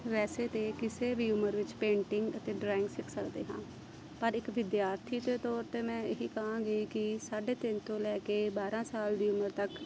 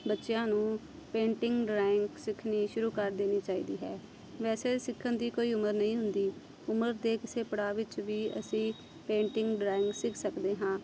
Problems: constant background noise